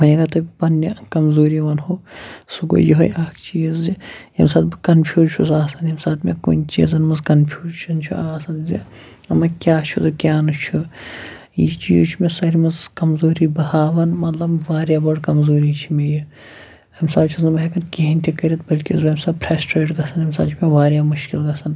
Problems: none marked